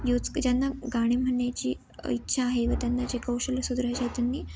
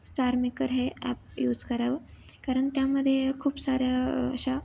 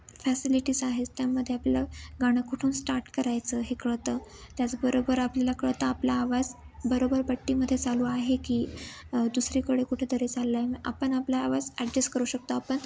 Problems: constant background noise, background conversations at intervals